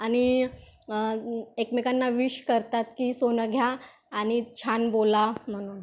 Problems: none marked